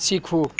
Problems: background sounds at intervals